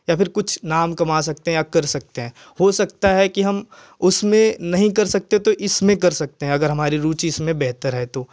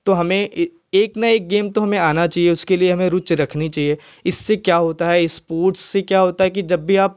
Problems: none marked